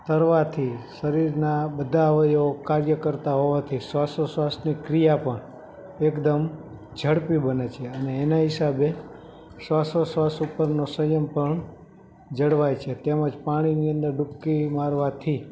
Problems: background sounds at intervals